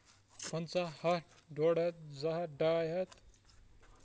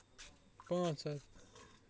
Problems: background sounds at intervals, low volume